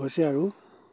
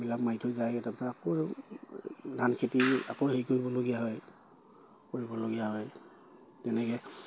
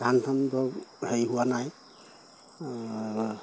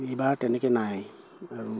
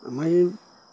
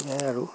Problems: constant background noise